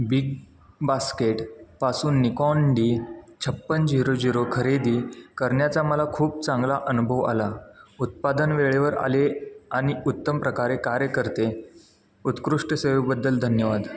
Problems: background sounds at intervals, background conversations at intervals